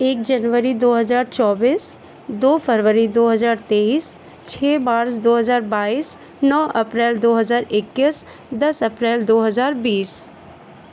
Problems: none marked